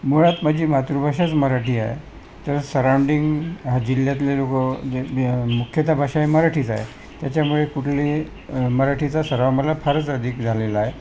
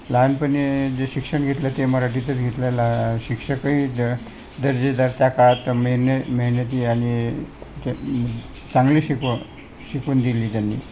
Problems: constant background noise, continuous background conversations